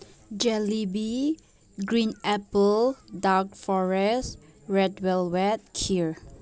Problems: none marked